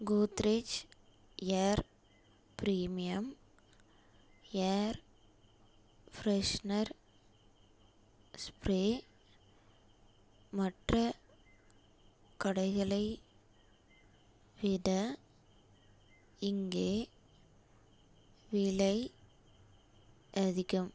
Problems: low volume